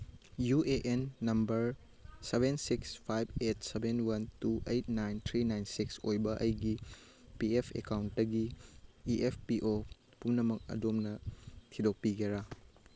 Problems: none marked